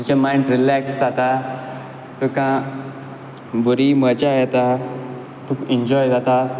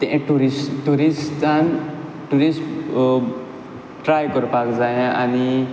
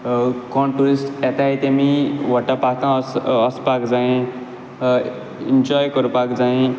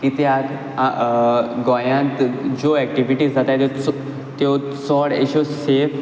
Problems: constant background noise